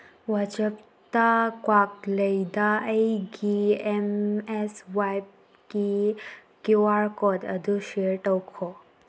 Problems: none marked